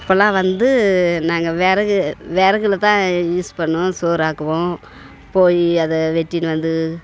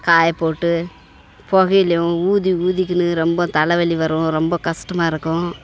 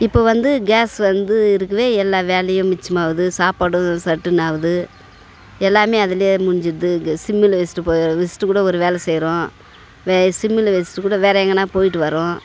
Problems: background conversations at intervals